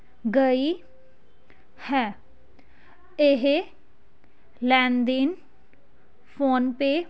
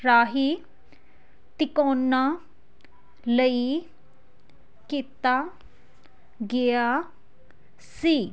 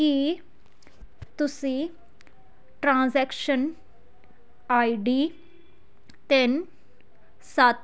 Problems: none marked